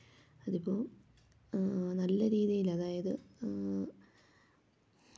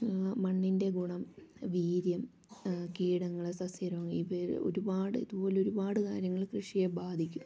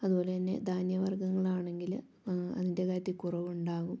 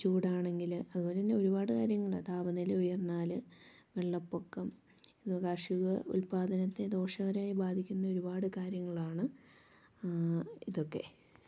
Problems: low volume